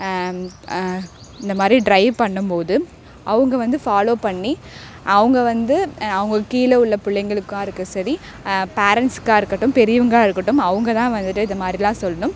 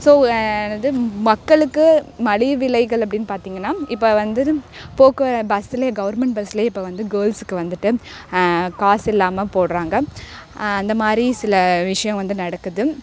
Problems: constant background noise